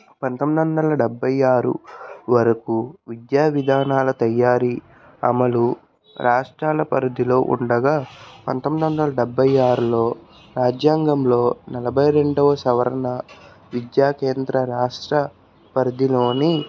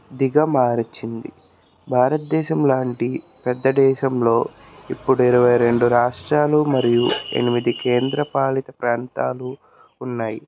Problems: none marked